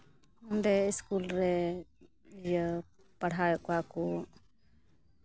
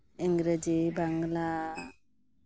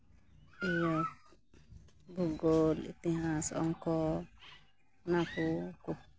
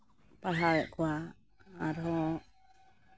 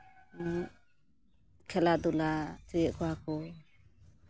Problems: background sounds at intervals